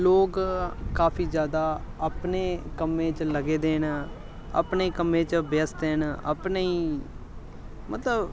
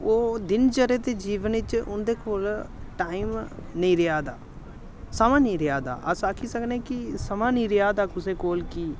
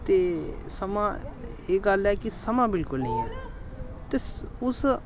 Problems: constant background noise